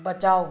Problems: none marked